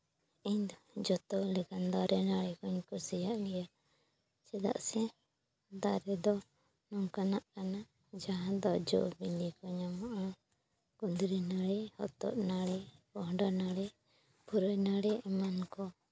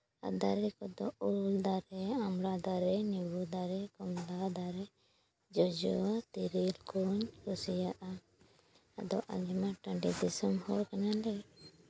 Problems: background sounds at intervals